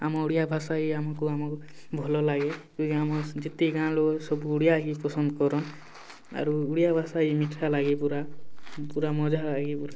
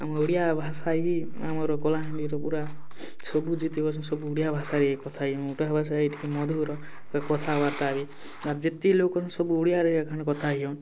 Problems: background sounds at intervals